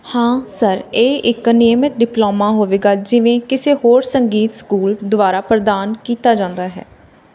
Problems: none marked